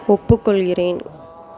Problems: continuous background conversations